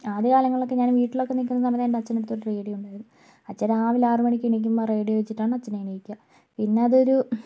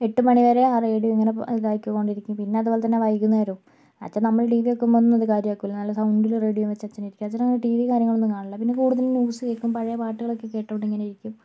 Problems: none marked